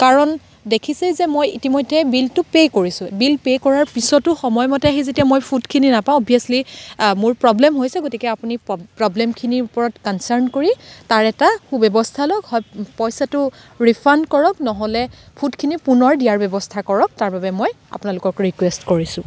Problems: constant background noise